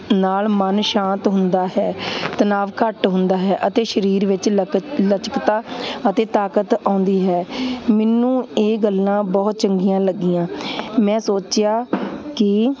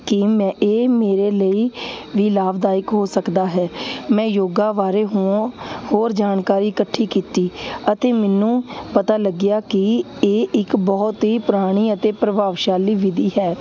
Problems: constant background noise